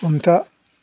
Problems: background sounds at intervals